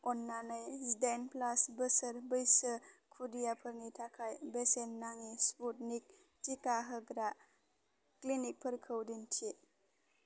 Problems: constant background noise